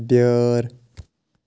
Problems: none marked